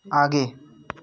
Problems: none marked